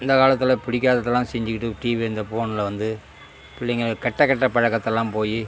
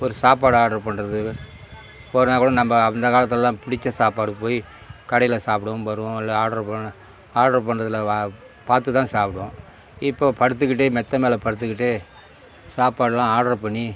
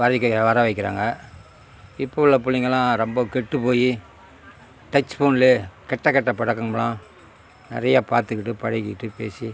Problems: constant background noise